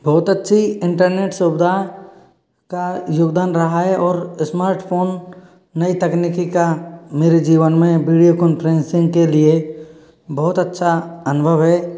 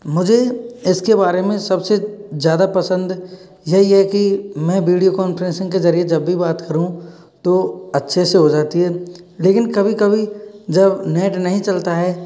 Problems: background sounds at intervals